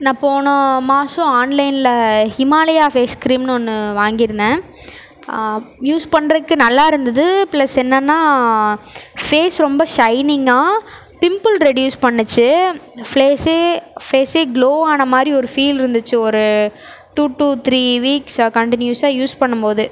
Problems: none marked